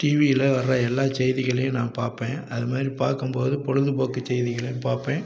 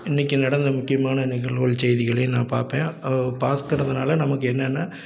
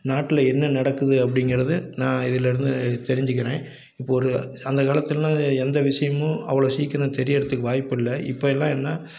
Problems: none marked